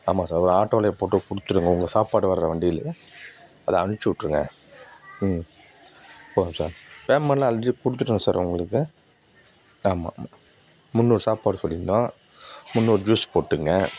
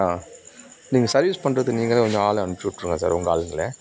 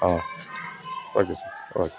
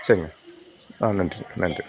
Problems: background sounds at intervals